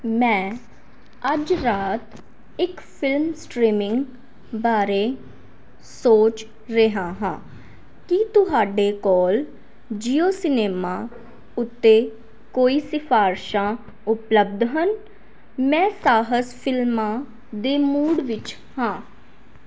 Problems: background sounds at intervals